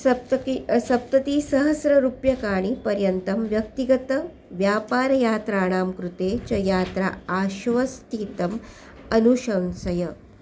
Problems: constant background noise